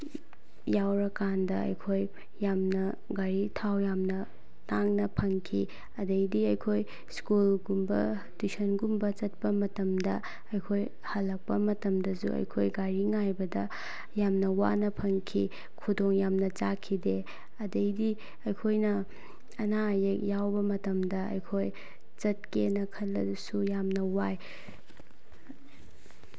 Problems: low volume